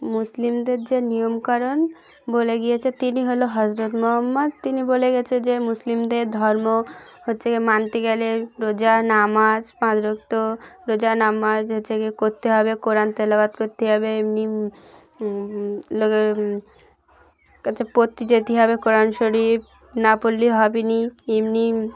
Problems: constant background noise, continuous background conversations